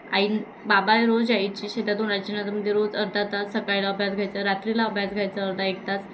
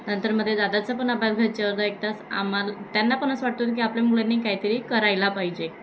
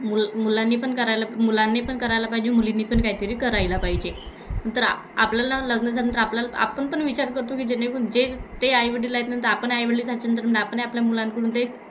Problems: constant background noise, continuous background conversations